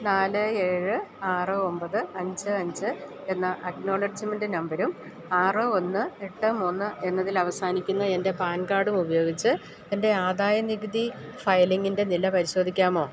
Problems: none marked